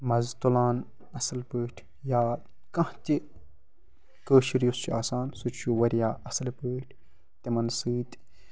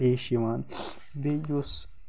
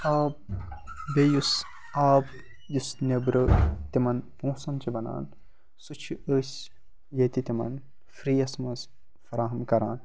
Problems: constant background noise